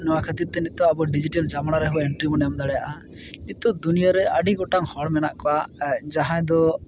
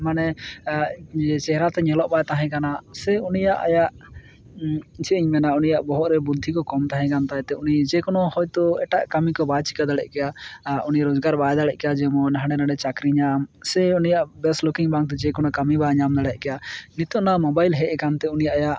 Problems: constant background noise